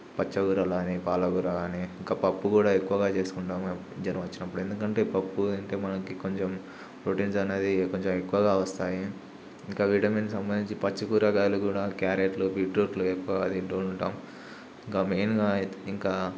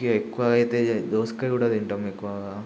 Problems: none marked